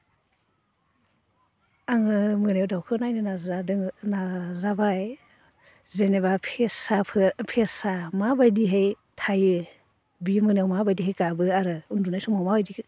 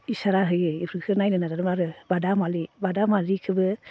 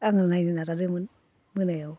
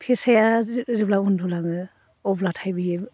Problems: constant background noise